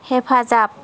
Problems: constant background noise